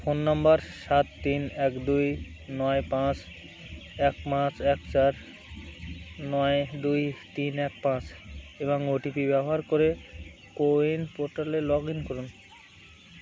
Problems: none marked